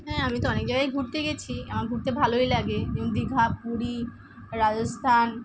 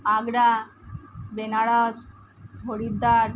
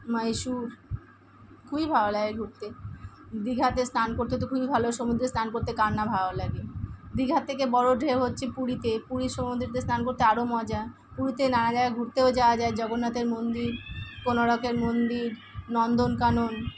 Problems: constant background noise